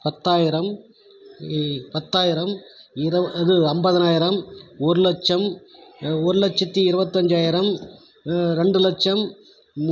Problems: background conversations at intervals